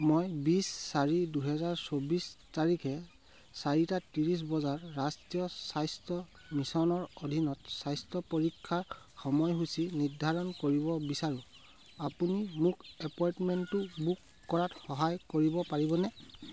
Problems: none marked